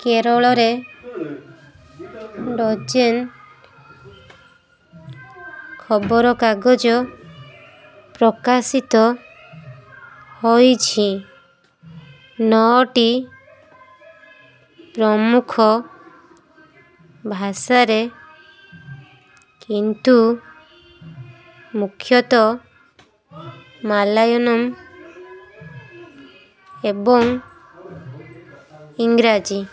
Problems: constant background noise